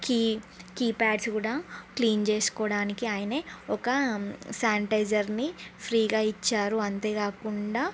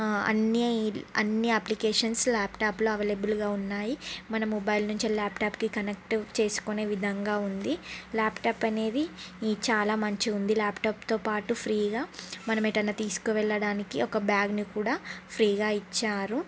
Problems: none marked